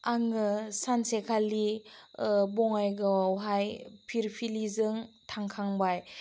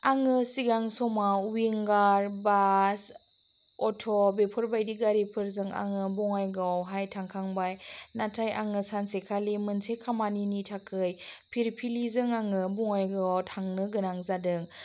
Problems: none marked